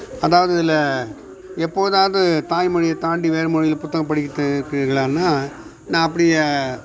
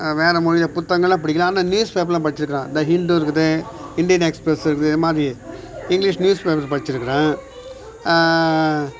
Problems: background sounds at intervals, background conversations at intervals